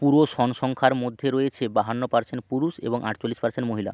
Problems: constant background noise